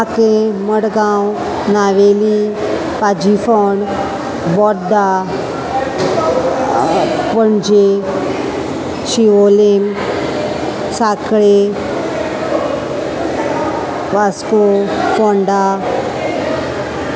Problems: constant background noise, continuous background conversations